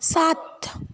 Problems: continuous background conversations